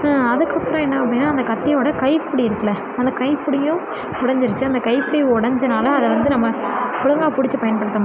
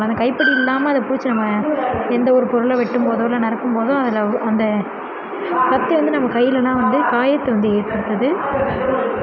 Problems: constant background noise, continuous background conversations